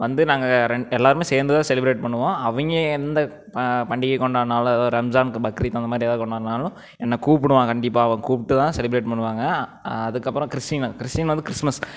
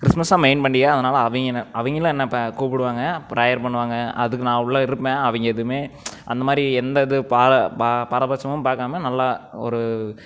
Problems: none marked